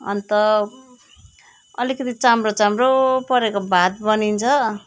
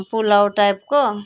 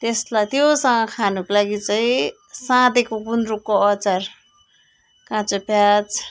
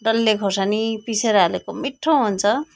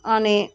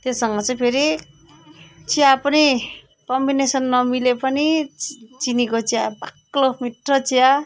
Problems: none marked